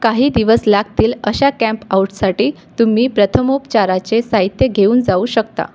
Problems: none marked